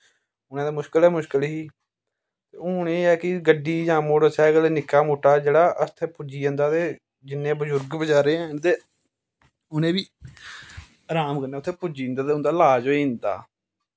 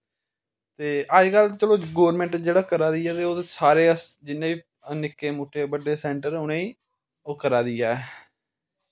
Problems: background sounds at intervals